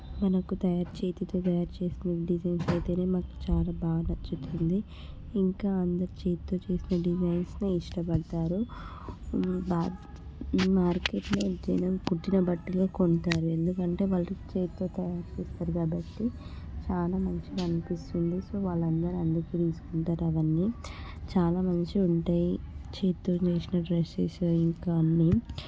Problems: constant background noise, background conversations at intervals